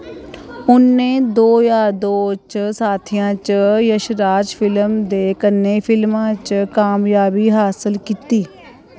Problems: none marked